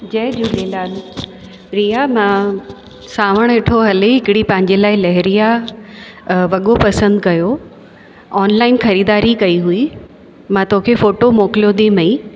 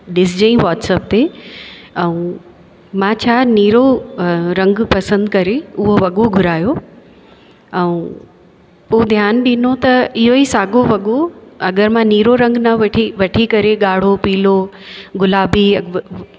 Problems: constant background noise, echo